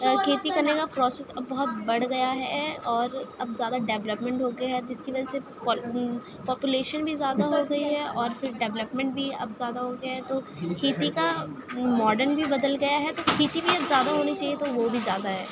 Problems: constant background noise, continuous background conversations, low volume